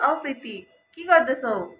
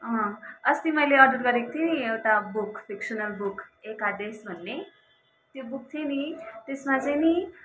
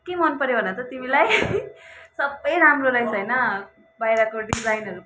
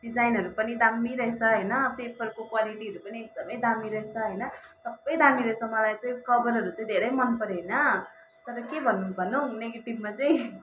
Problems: background sounds at intervals, continuous background conversations